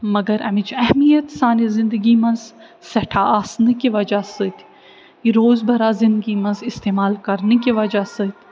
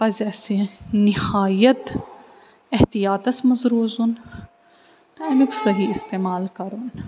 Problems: none marked